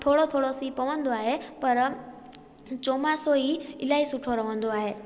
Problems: constant background noise, echo